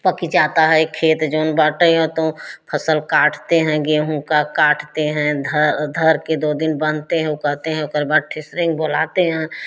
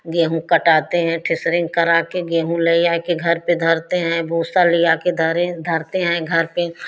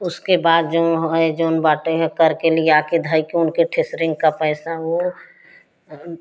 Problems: none marked